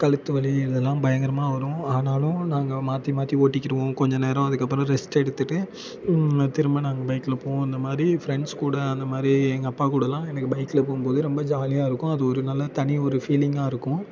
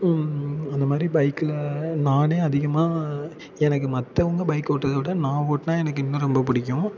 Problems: none marked